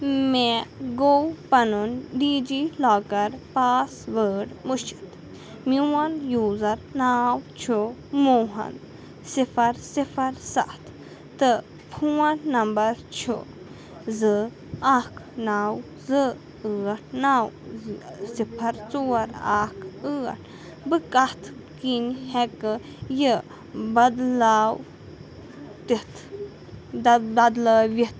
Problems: constant background noise